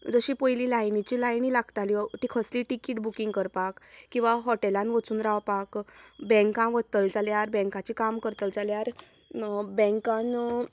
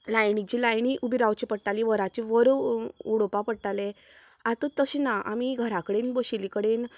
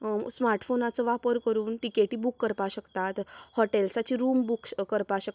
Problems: background sounds at intervals